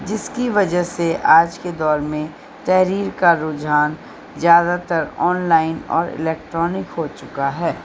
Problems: constant background noise, low volume